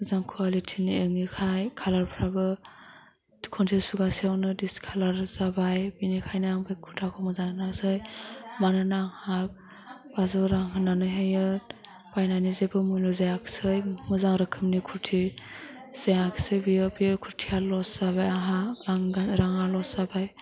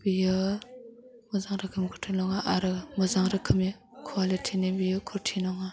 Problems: low volume